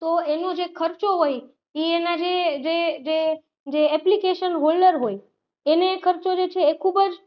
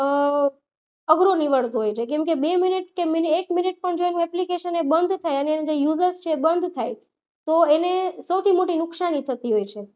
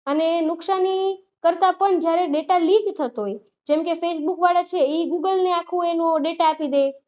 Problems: none marked